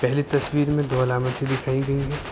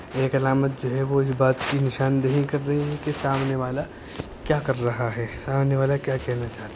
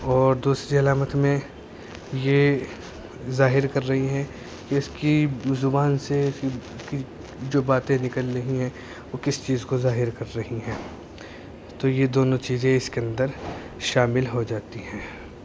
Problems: constant background noise